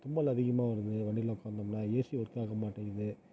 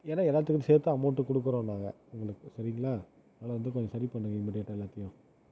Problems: low volume